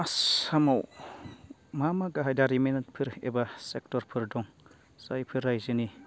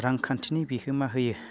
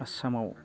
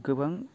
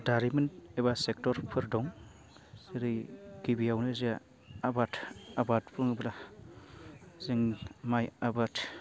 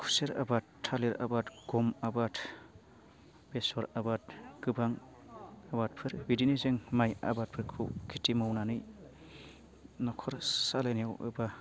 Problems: constant background noise